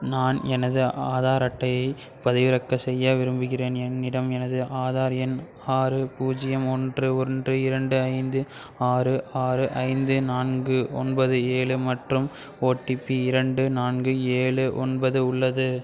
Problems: background sounds at intervals, background conversations at intervals